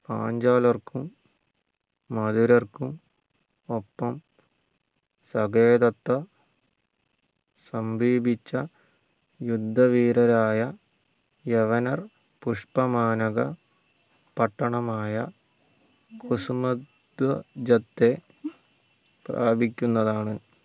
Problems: low volume